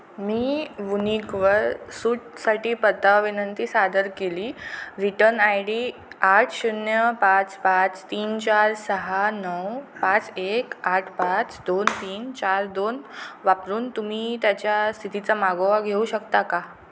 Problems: constant background noise